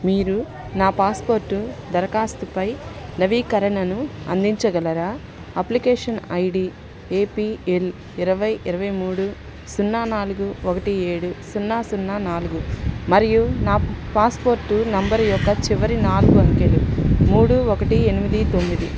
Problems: constant background noise, background conversations at intervals